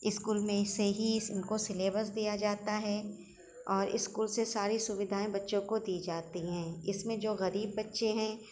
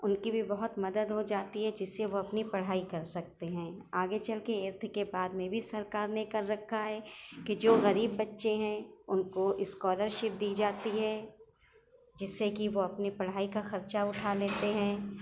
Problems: background sounds at intervals